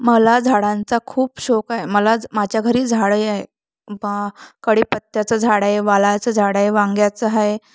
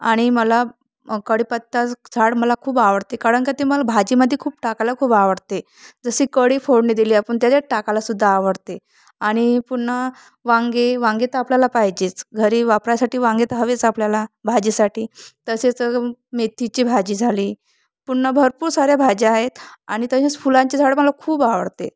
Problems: background sounds at intervals